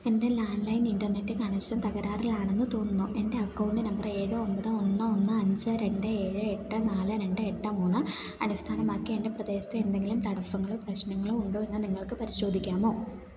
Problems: none marked